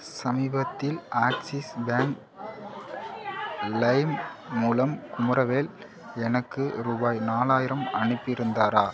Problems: background conversations at intervals